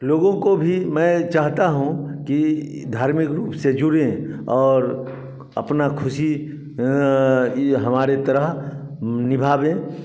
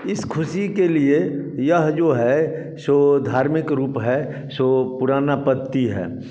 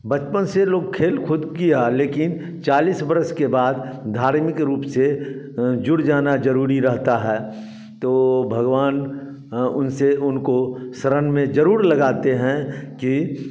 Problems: background sounds at intervals, echo